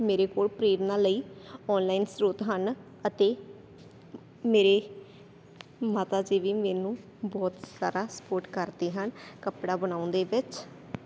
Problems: none marked